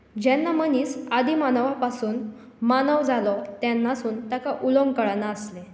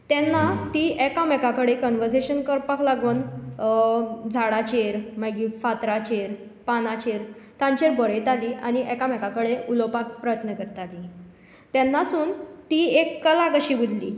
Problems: background sounds at intervals